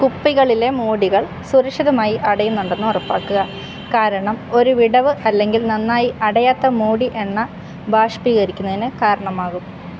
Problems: constant background noise